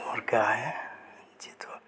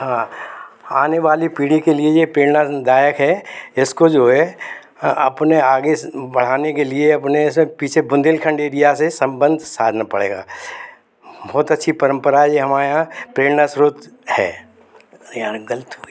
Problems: constant background noise, background conversations at intervals